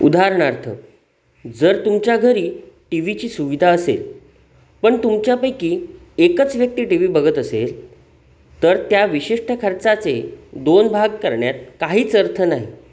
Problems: constant background noise